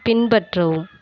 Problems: background sounds at intervals